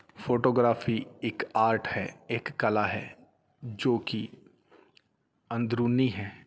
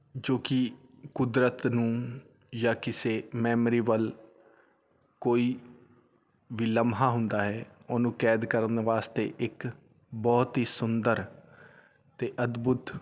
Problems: background sounds at intervals